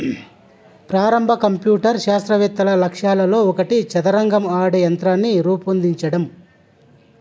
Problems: none marked